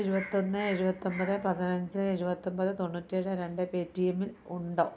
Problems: none marked